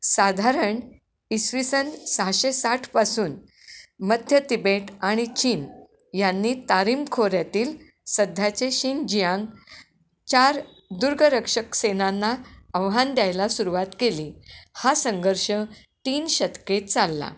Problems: constant background noise, echo